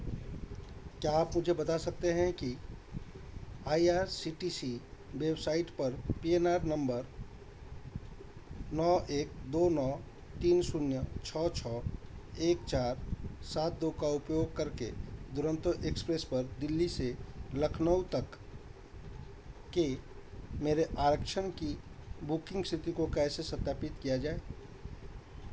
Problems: constant background noise